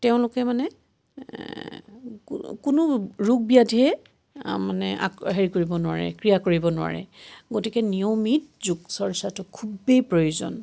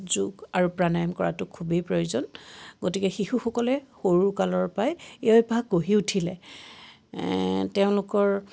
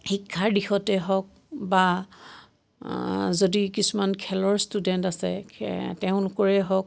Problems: none marked